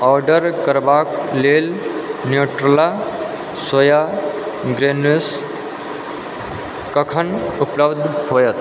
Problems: constant background noise